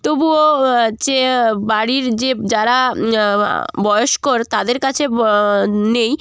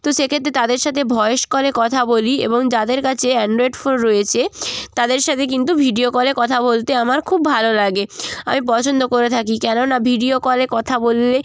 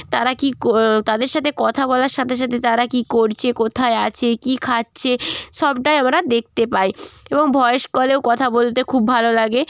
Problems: constant background noise, continuous background conversations